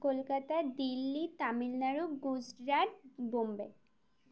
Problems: none marked